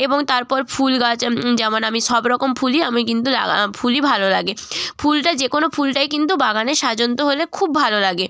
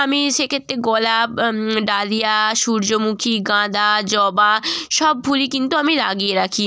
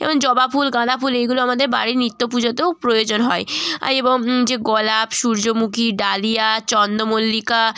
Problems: none marked